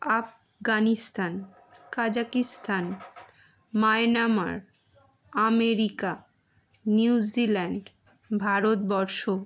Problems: background sounds at intervals